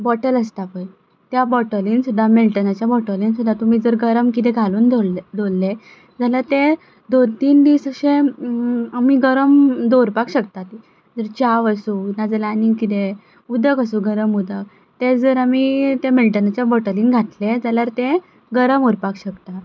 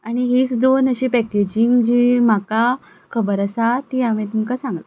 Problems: background sounds at intervals